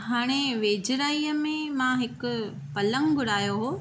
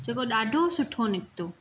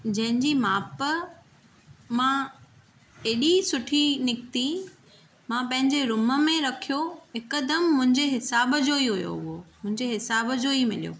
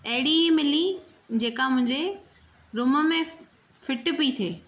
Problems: none marked